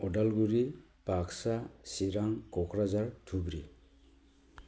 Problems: low volume